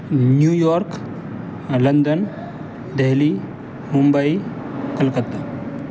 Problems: constant background noise, background conversations at intervals